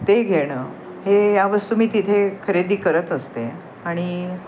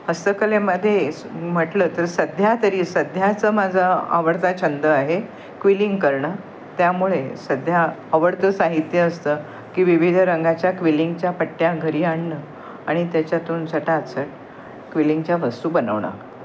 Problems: constant background noise